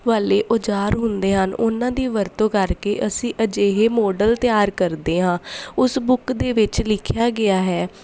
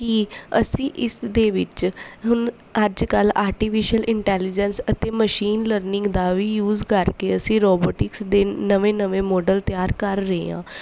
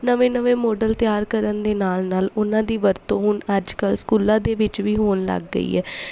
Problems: none marked